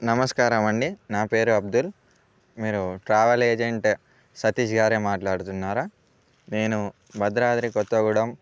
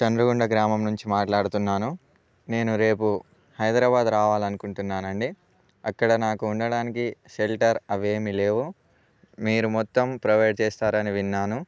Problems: none marked